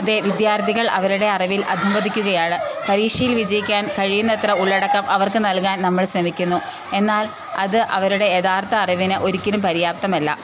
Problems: constant background noise